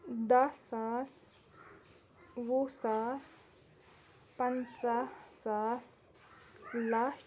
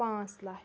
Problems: background sounds at intervals, background conversations at intervals